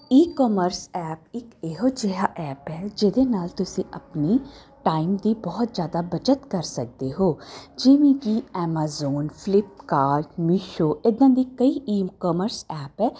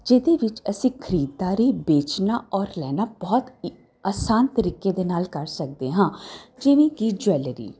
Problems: constant background noise